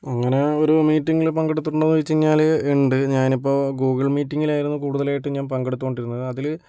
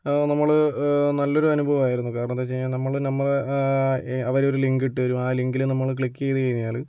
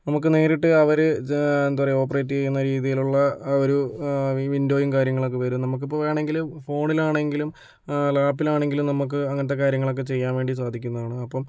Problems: none marked